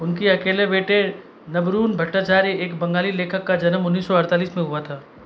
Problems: constant background noise